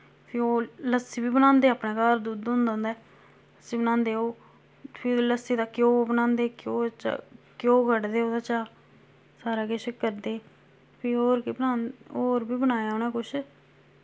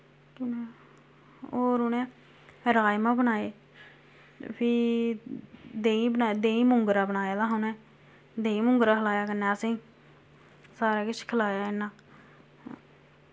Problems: constant background noise